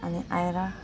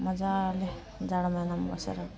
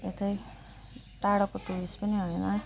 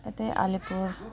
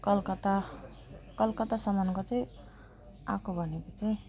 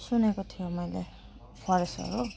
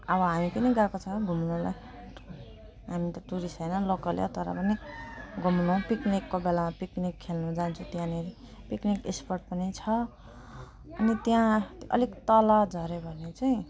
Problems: none marked